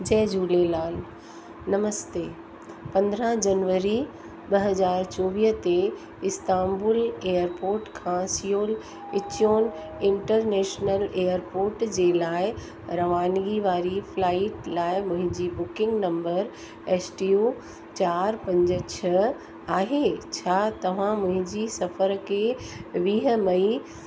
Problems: constant background noise, echo